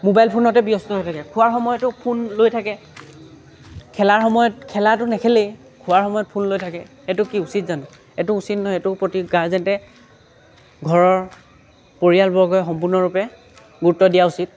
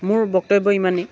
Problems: none marked